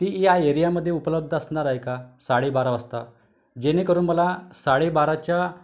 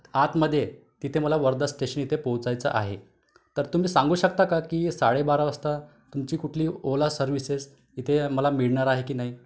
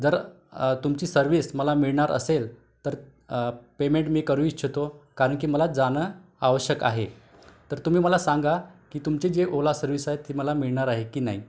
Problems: background sounds at intervals, background conversations at intervals